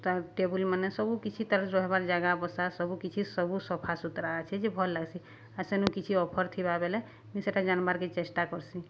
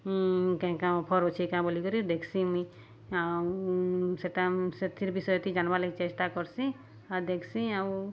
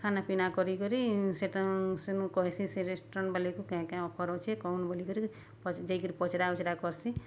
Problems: none marked